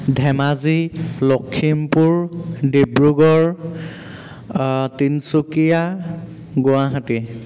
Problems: none marked